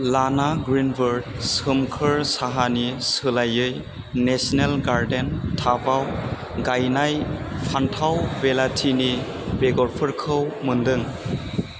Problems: none marked